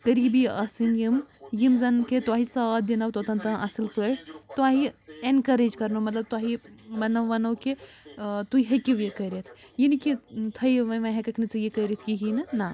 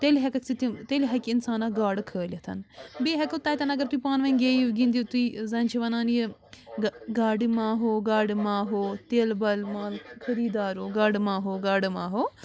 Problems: constant background noise